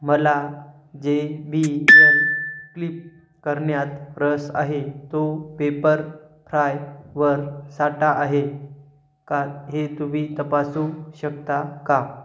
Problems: background sounds at intervals